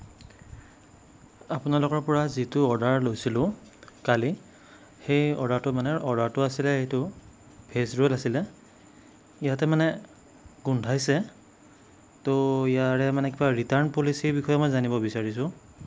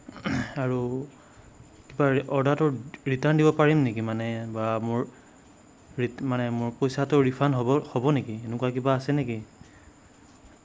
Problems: none marked